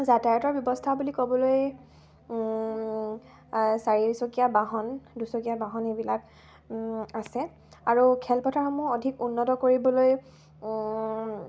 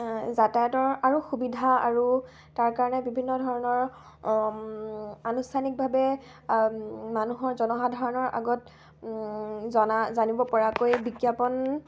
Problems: constant background noise